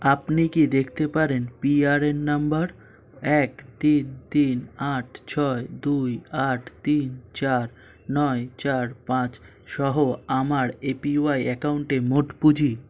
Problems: constant background noise